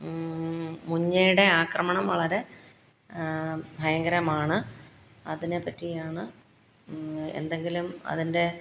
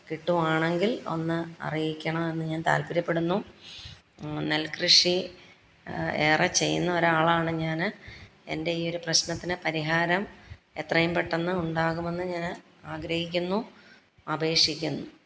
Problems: background sounds at intervals